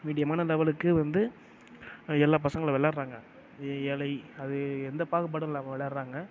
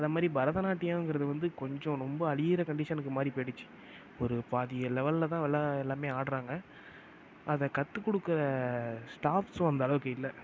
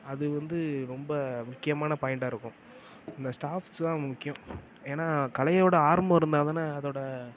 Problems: low volume